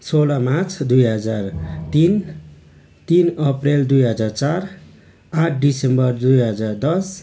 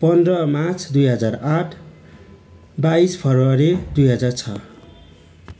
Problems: constant background noise